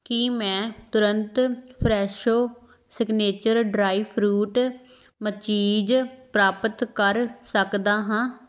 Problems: background sounds at intervals